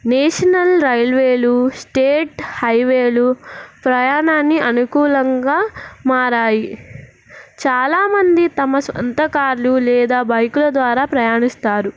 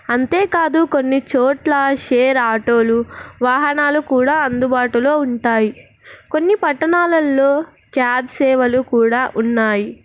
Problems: none marked